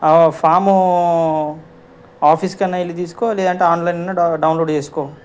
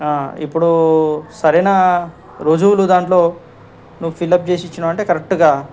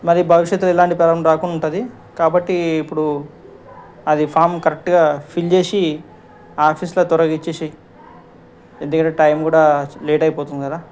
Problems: background conversations at intervals